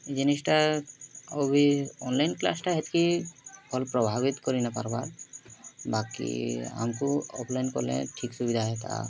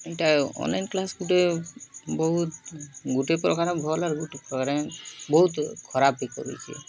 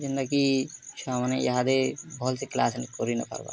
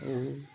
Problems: constant background noise, continuous background conversations